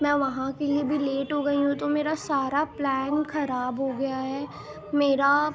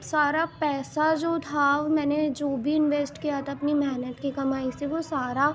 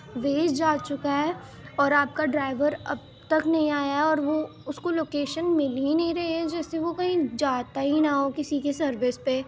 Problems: constant background noise